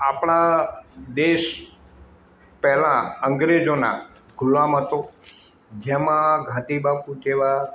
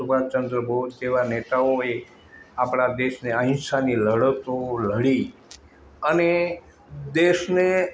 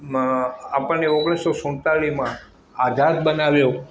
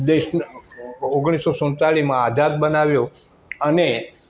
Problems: constant background noise